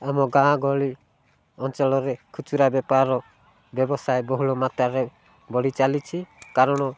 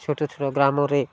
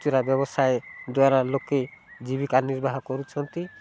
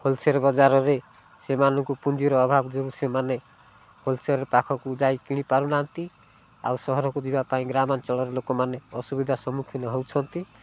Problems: low volume